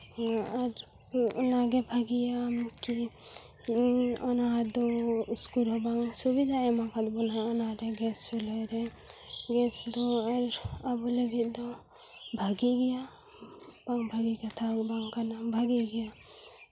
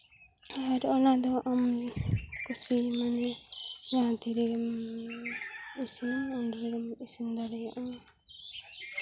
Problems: background sounds at intervals